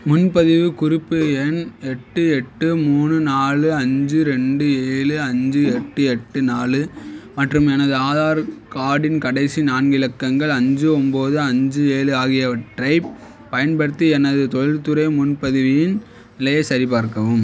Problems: none marked